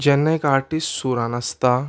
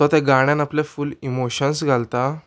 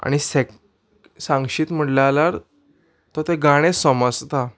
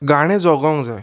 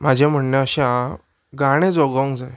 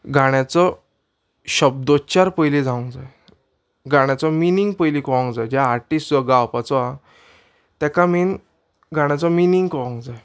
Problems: background sounds at intervals